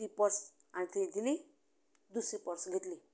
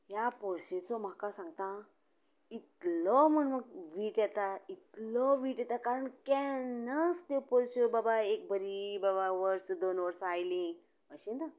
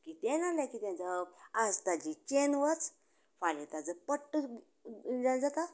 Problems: continuous background conversations